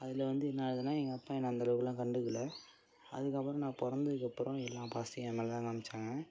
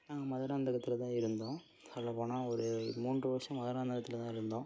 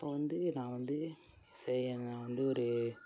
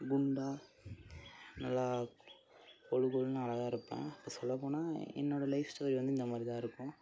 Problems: low volume